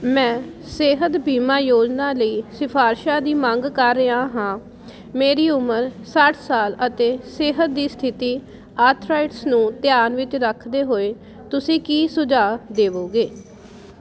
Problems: constant background noise